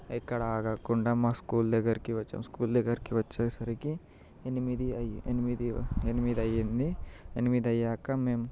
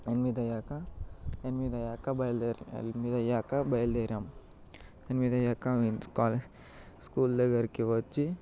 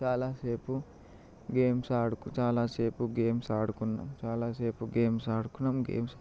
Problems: background sounds at intervals, low volume